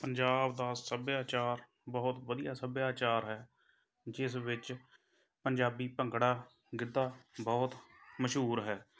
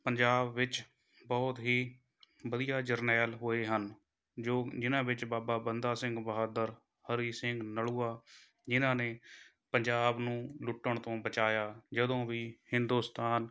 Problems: background sounds at intervals